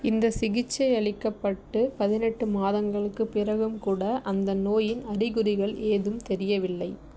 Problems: none marked